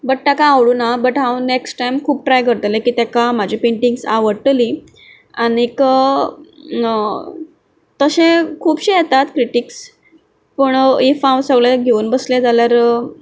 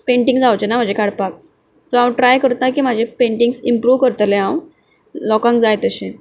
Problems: background sounds at intervals